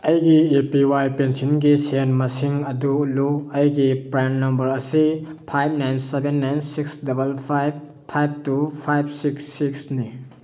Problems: none marked